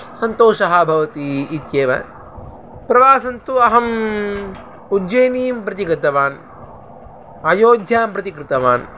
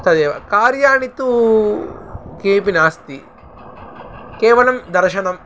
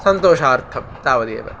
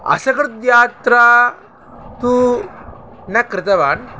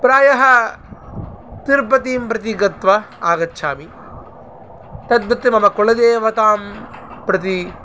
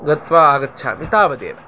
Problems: constant background noise